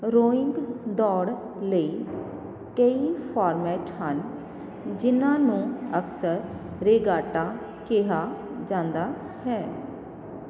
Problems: constant background noise